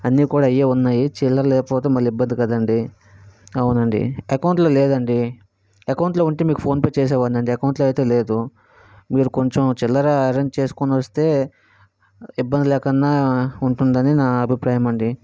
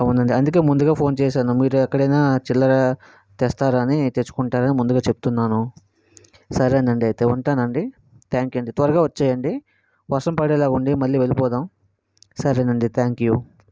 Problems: background sounds at intervals